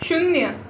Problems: none marked